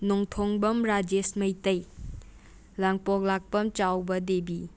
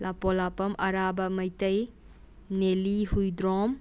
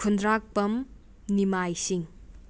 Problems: none marked